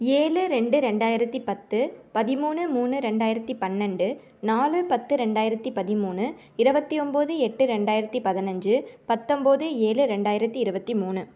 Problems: none marked